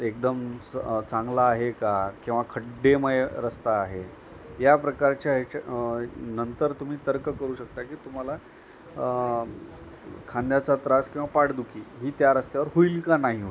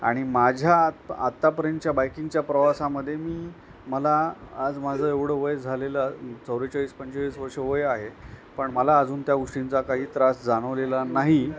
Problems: none marked